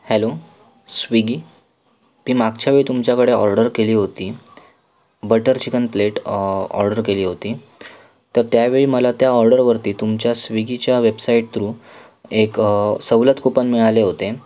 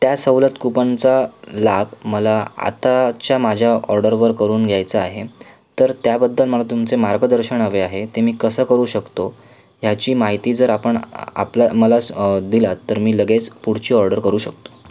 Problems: constant background noise, background conversations at intervals